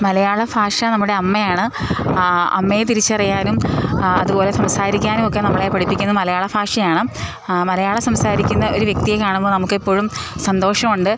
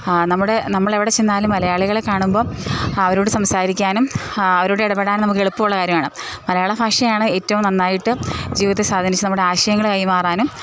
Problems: background sounds at intervals